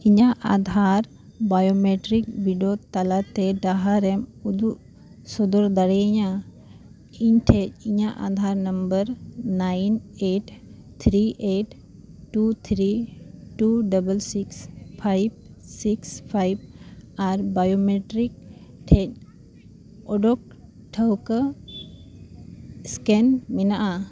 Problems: none marked